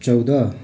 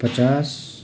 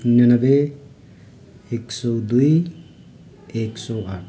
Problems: continuous background conversations